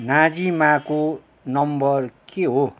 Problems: constant background noise